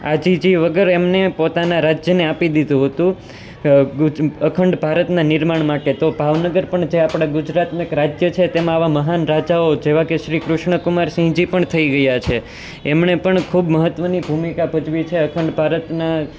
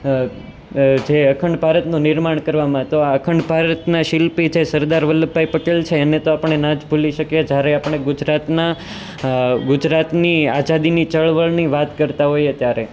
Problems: constant background noise